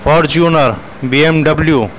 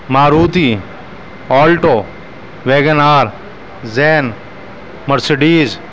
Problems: constant background noise